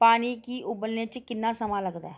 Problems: none marked